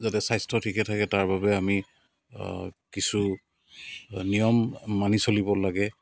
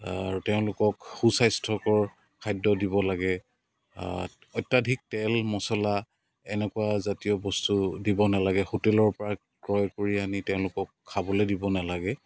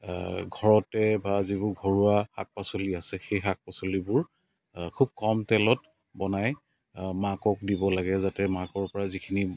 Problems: constant background noise